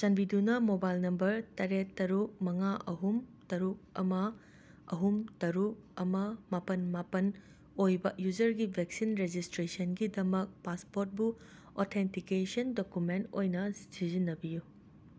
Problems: constant background noise